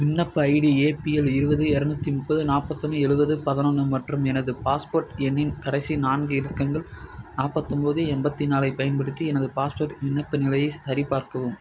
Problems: none marked